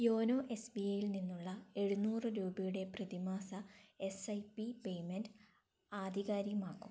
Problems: low volume